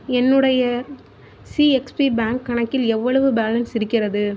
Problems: constant background noise